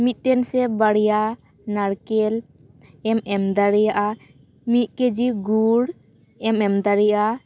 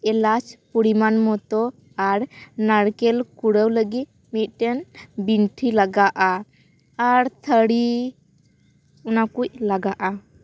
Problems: constant background noise